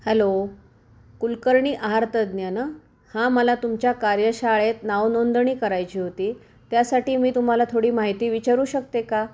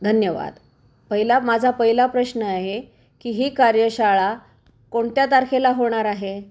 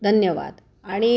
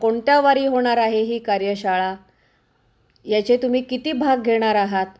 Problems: background sounds at intervals